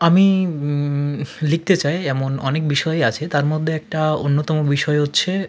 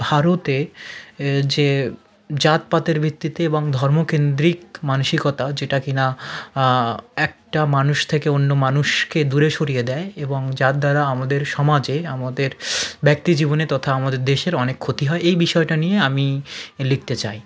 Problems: none marked